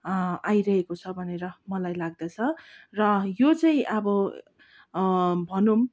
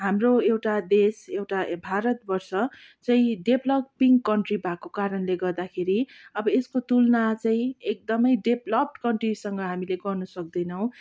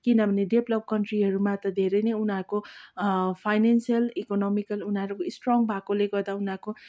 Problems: background sounds at intervals